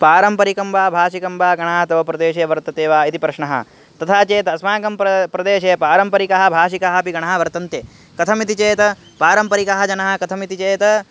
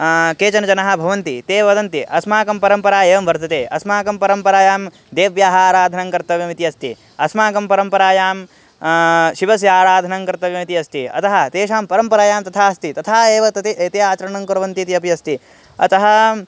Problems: background sounds at intervals